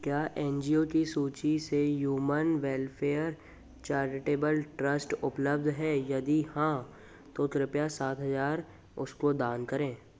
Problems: constant background noise